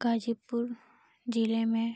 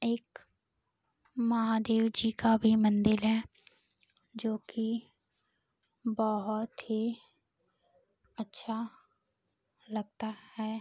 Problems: constant background noise